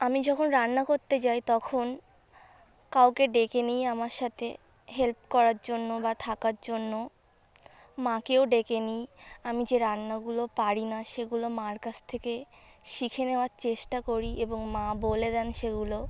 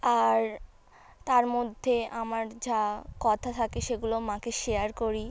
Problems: background sounds at intervals, background conversations at intervals